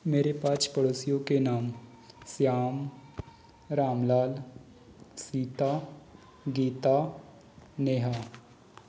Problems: none marked